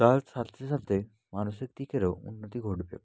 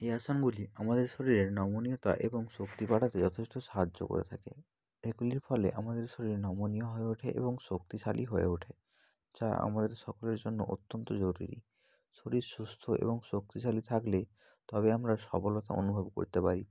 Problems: none marked